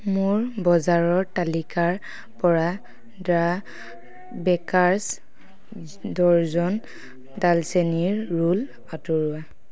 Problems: none marked